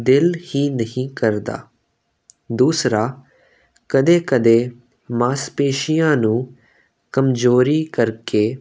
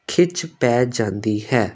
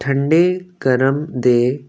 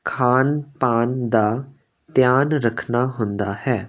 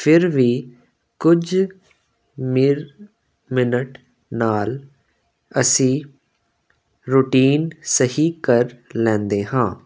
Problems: constant background noise